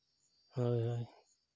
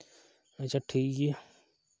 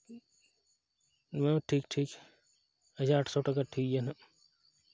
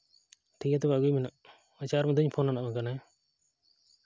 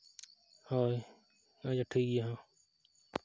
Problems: none marked